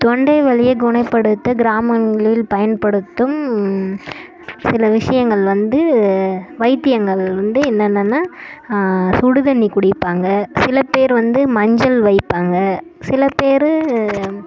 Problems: background sounds at intervals